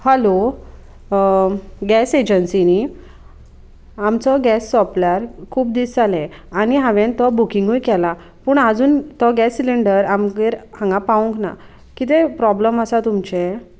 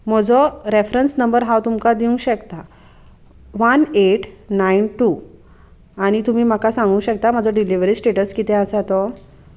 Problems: none marked